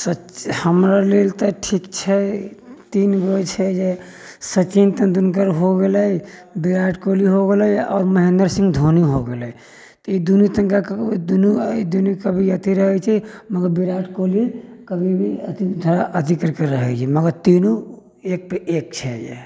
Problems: background sounds at intervals